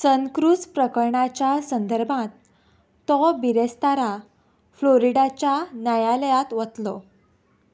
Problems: background sounds at intervals